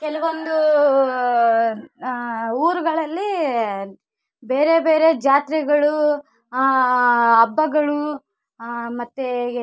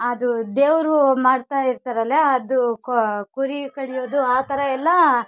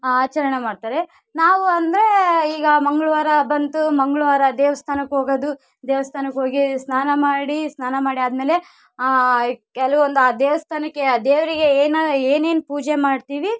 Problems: none marked